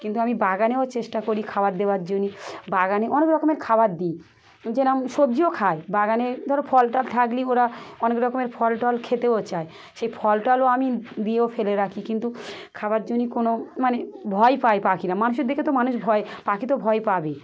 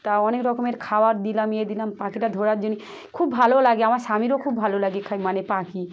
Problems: constant background noise, background conversations at intervals